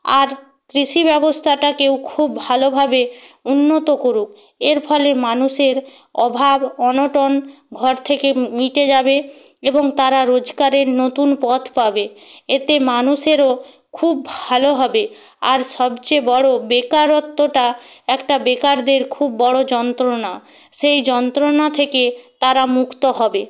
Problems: none marked